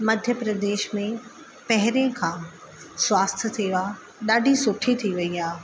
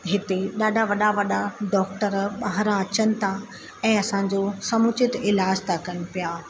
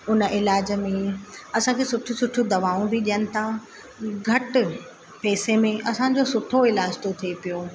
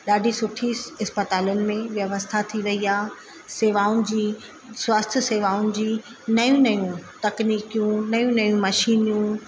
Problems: constant background noise, echo